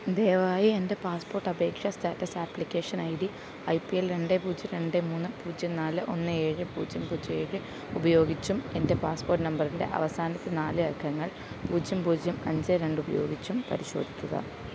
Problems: background sounds at intervals